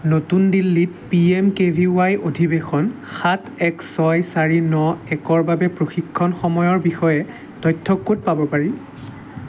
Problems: constant background noise